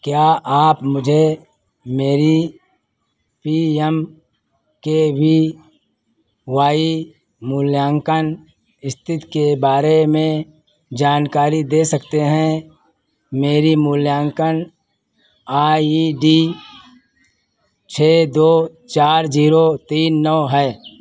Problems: constant background noise